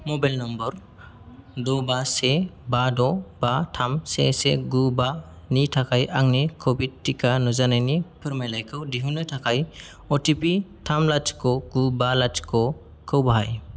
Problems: none marked